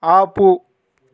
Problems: none marked